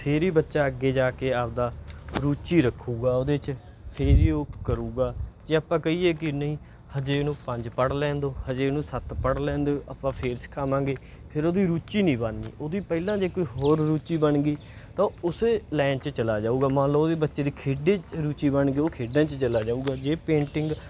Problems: background sounds at intervals